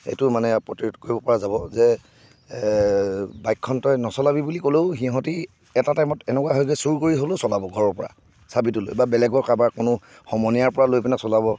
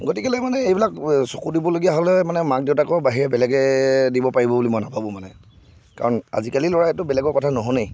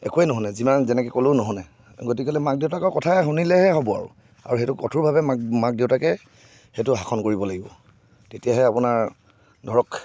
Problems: none marked